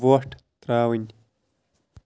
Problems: constant background noise, low volume